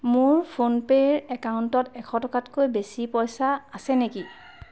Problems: background sounds at intervals